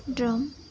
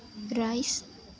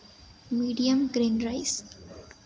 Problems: constant background noise, background conversations at intervals